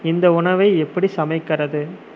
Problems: constant background noise